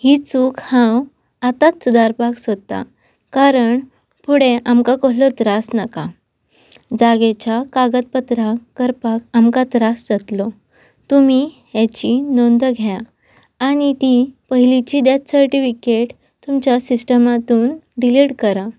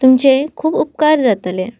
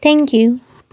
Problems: constant background noise